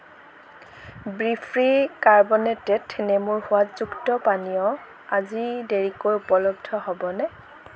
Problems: none marked